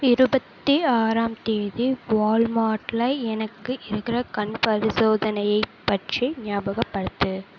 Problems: none marked